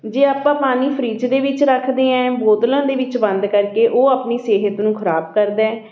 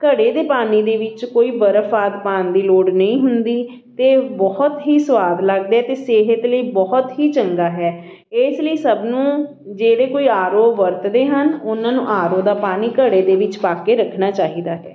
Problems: constant background noise, continuous background conversations